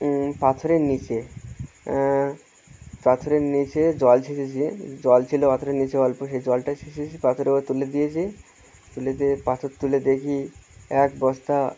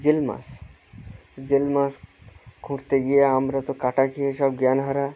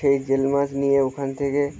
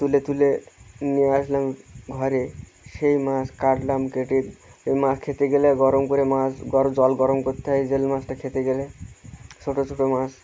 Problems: none marked